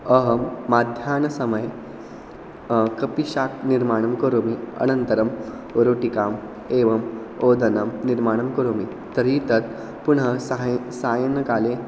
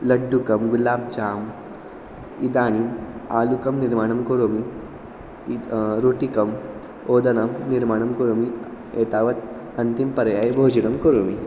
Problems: constant background noise